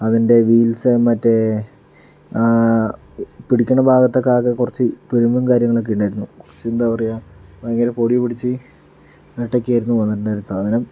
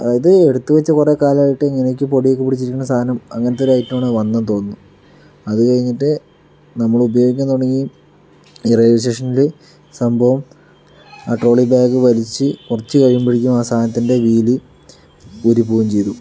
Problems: background sounds at intervals